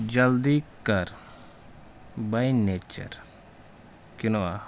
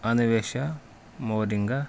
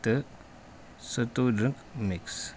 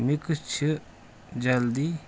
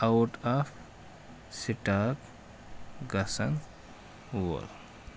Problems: background sounds at intervals